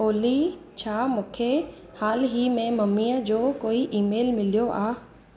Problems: constant background noise, echo